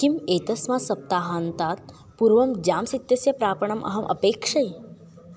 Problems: none marked